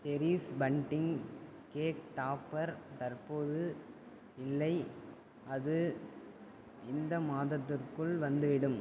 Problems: constant background noise, low volume